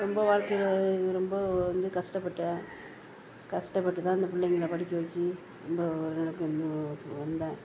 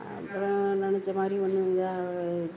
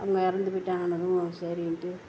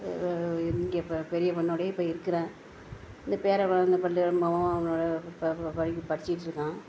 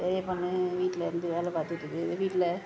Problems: background conversations at intervals